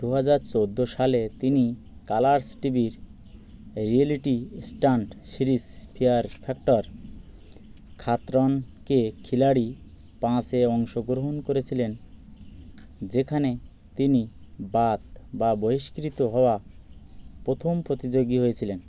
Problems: constant background noise